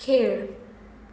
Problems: background sounds at intervals